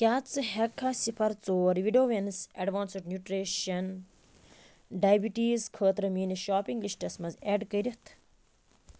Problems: none marked